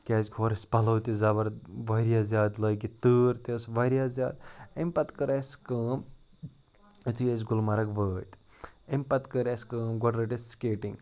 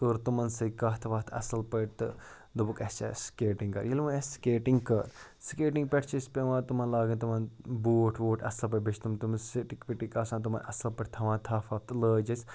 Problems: none marked